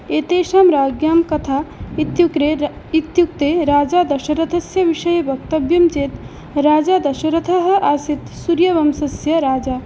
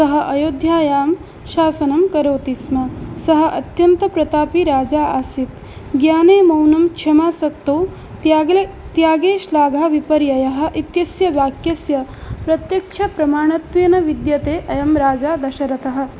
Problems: constant background noise